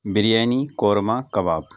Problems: constant background noise